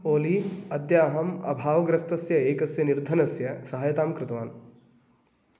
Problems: none marked